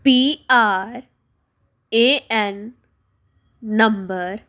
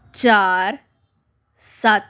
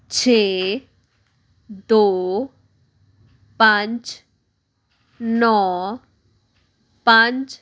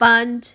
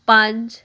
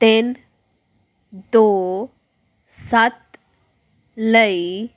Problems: background sounds at intervals